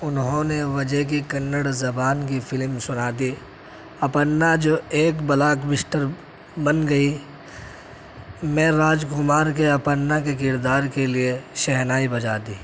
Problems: none marked